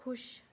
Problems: background sounds at intervals